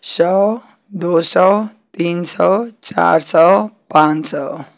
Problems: constant background noise